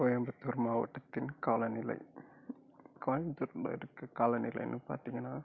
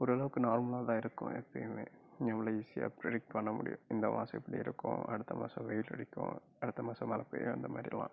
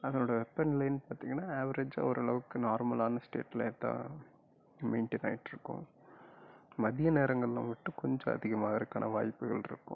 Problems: low volume